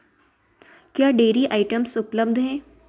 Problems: none marked